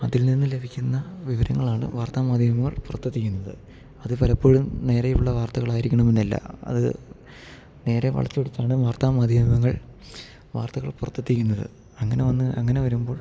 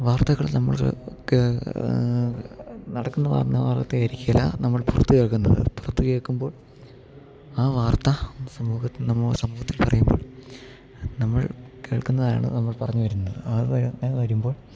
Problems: low volume